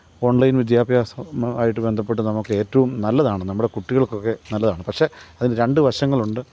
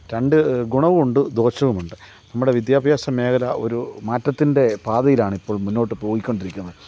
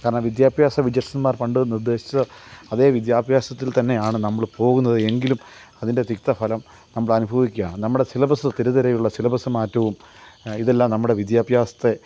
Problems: none marked